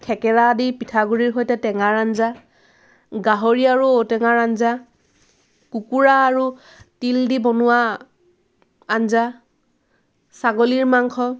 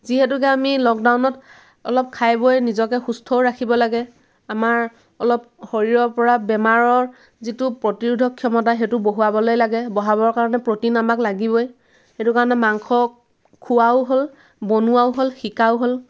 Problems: none marked